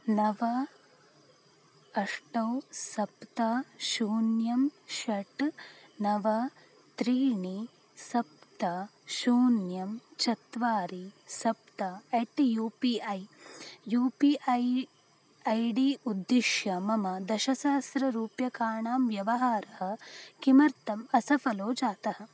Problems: none marked